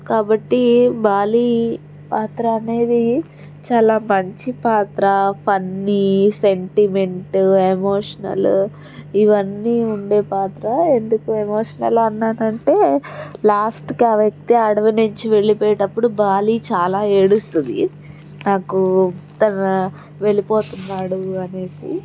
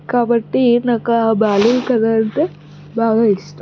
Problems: background sounds at intervals